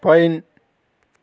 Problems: constant background noise